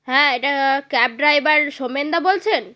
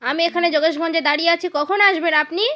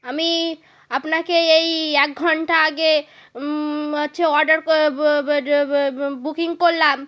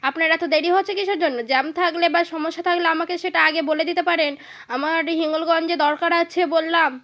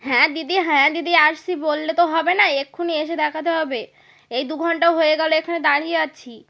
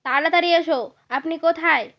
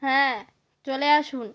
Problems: none marked